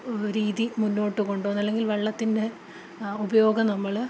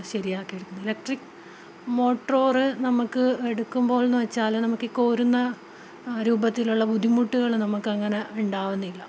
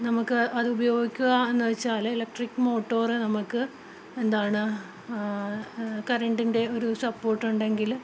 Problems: none marked